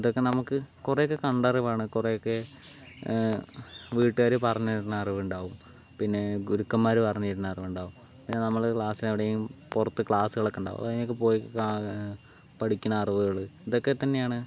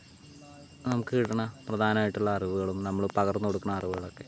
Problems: constant background noise